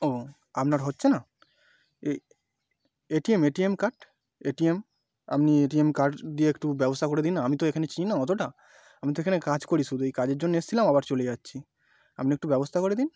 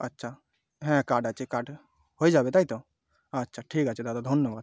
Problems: none marked